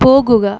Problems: background sounds at intervals